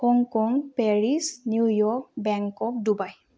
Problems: low volume